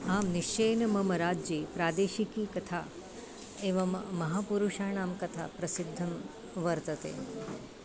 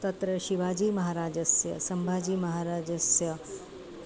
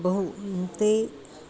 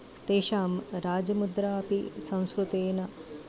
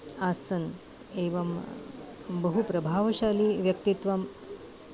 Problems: constant background noise, continuous background conversations